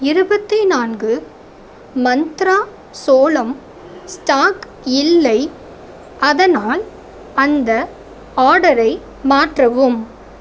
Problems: constant background noise